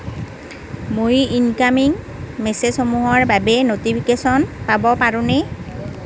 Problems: background conversations at intervals